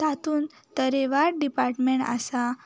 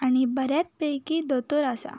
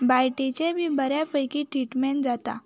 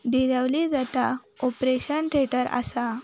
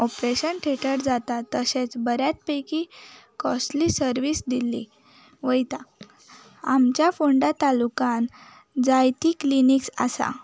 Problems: background sounds at intervals